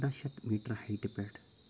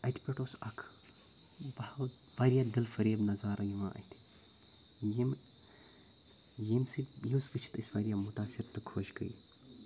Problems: none marked